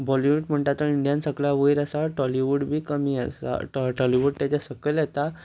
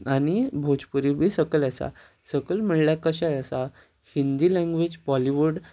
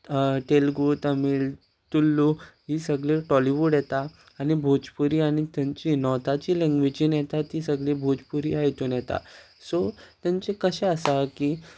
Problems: constant background noise